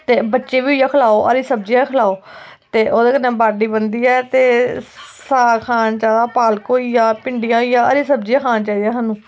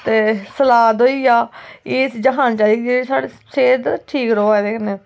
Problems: constant background noise